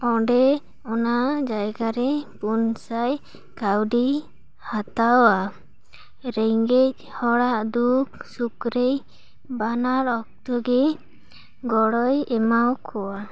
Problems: none marked